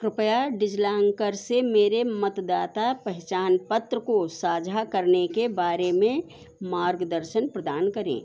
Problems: constant background noise